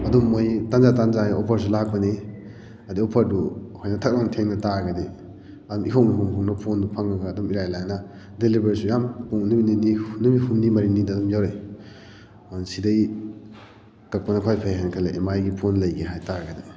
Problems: background sounds at intervals